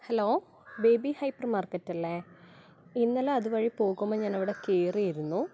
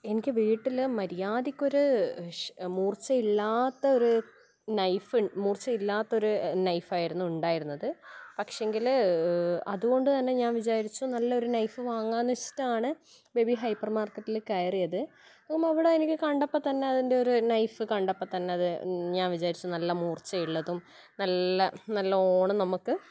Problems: background sounds at intervals